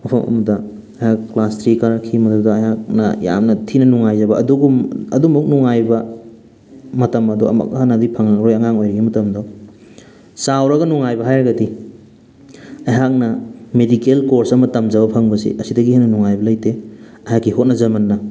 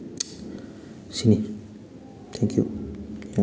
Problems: background sounds at intervals